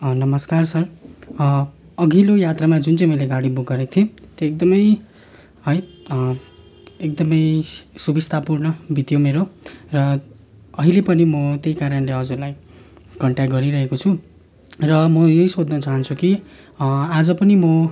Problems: background sounds at intervals